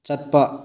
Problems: low volume